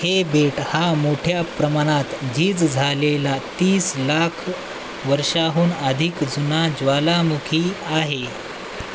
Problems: constant background noise